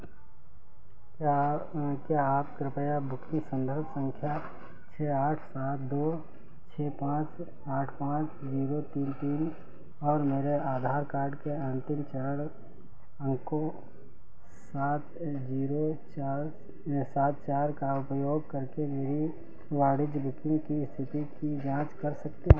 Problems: none marked